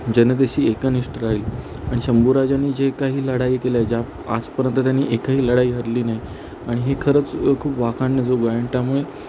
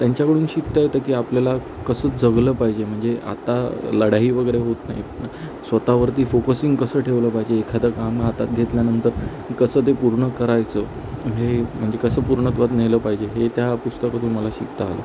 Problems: constant background noise